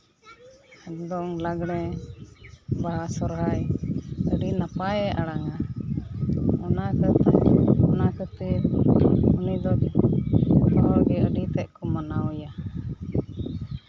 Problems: none marked